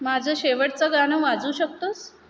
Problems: none marked